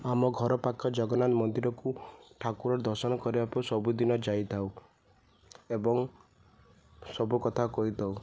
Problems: none marked